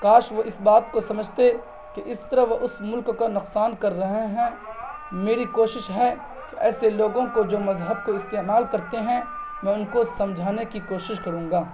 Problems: constant background noise